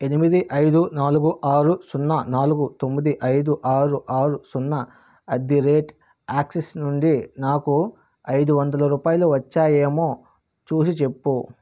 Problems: constant background noise